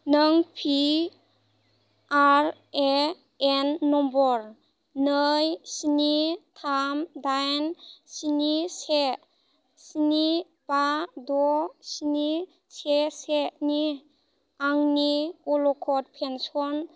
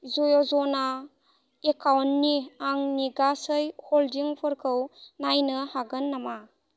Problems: low volume